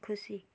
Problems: none marked